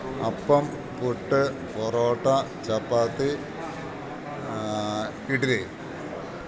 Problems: background sounds at intervals